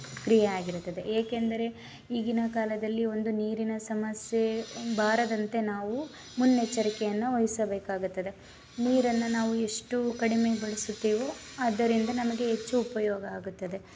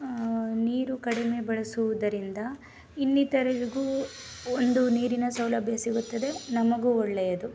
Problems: background sounds at intervals